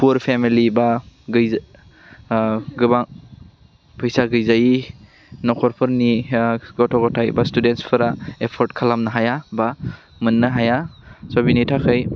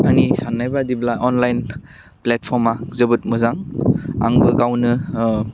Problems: constant background noise